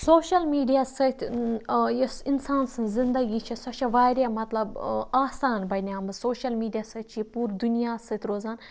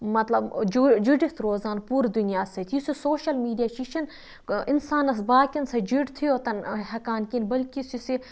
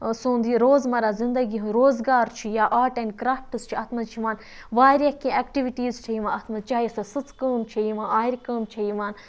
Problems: constant background noise